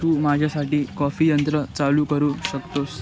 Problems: none marked